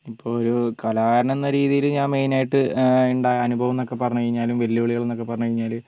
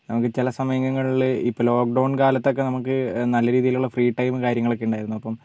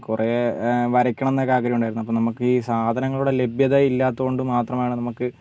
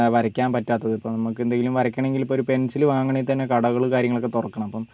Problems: low volume